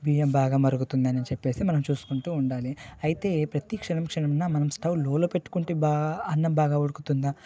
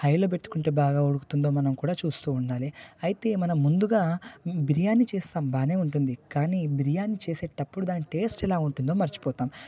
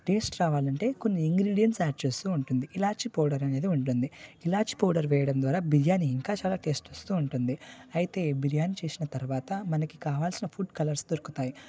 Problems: background conversations at intervals